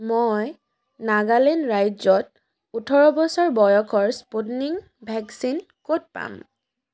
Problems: background conversations at intervals